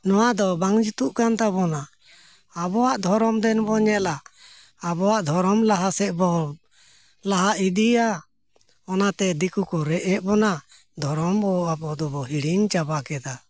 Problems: none marked